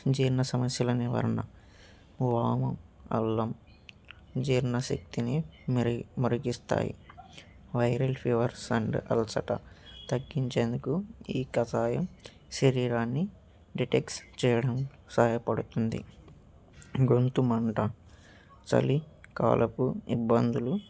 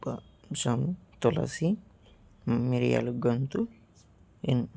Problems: background sounds at intervals